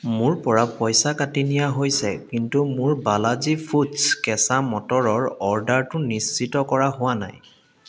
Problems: constant background noise, echo